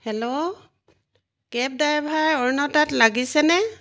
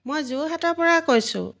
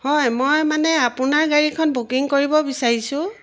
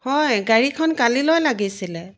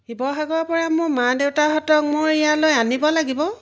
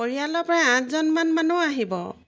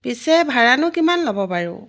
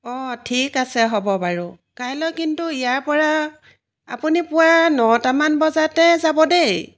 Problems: background sounds at intervals